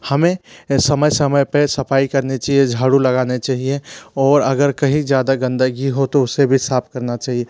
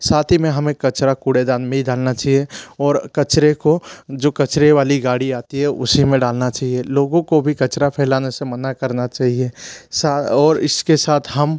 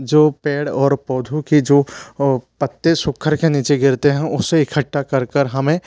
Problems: none marked